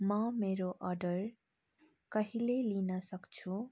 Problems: low volume